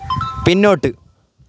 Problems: constant background noise